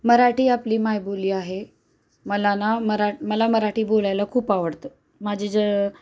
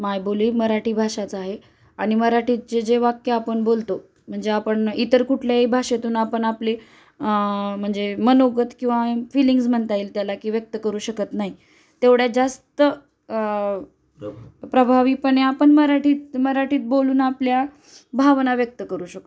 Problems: constant background noise